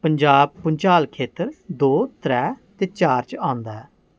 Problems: none marked